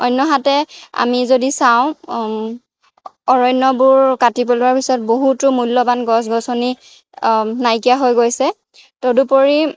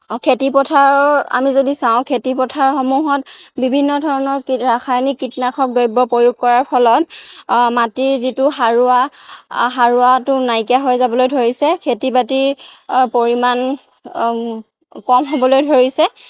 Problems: background sounds at intervals